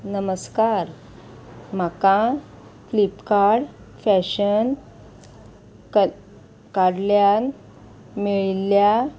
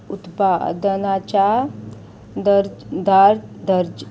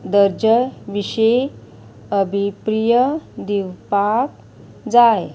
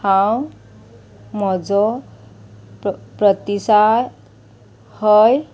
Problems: constant background noise